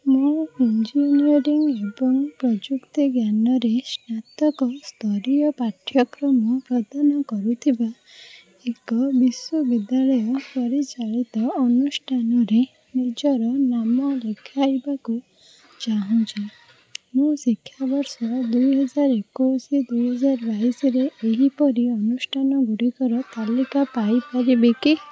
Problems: background sounds at intervals